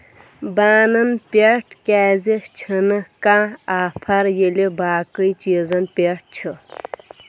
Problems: background sounds at intervals